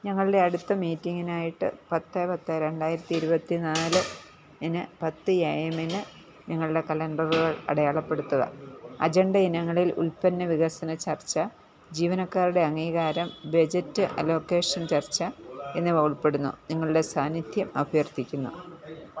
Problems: none marked